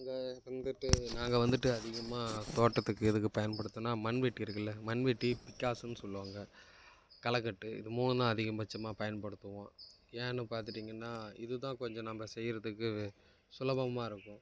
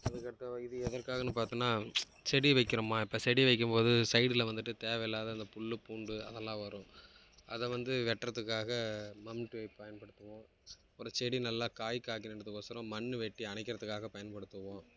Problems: background sounds at intervals